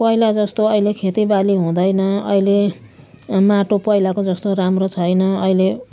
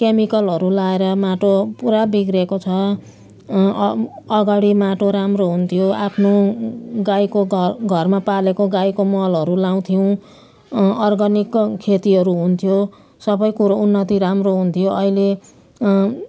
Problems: none marked